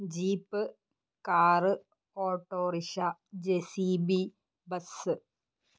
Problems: none marked